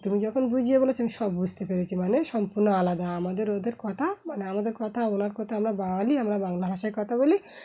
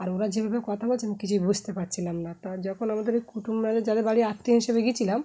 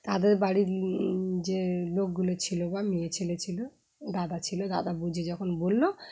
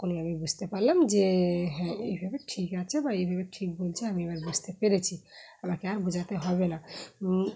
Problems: background sounds at intervals